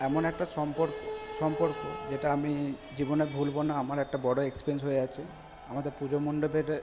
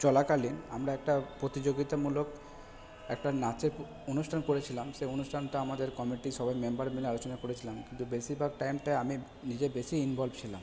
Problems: background sounds at intervals